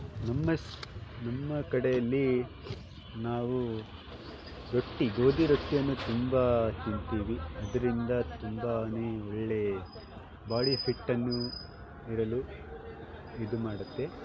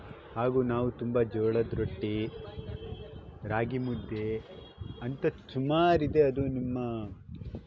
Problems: background sounds at intervals